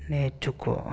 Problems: constant background noise